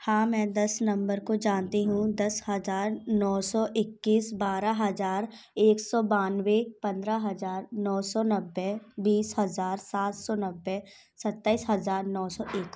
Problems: background sounds at intervals